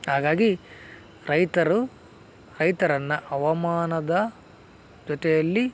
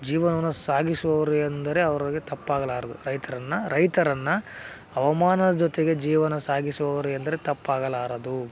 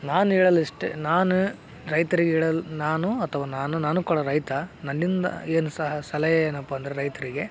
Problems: background sounds at intervals